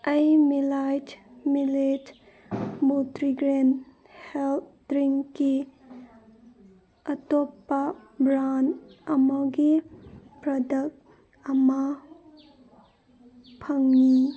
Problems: background sounds at intervals, background conversations at intervals